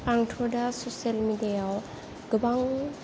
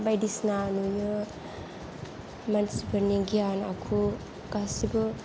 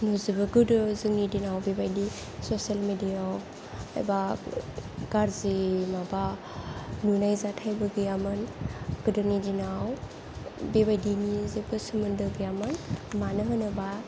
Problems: low volume